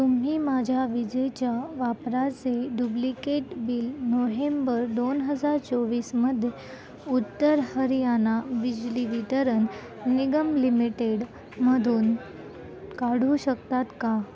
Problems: constant background noise